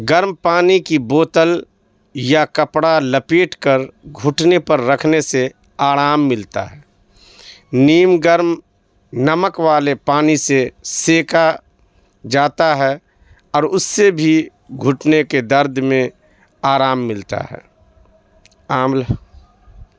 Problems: background sounds at intervals